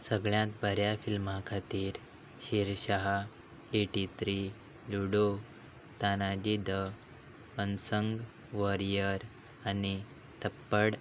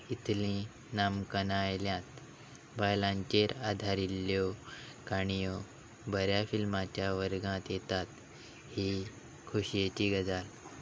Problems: none marked